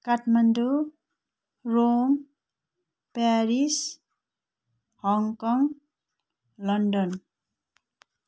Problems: background sounds at intervals